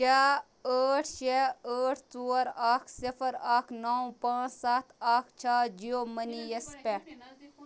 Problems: background conversations at intervals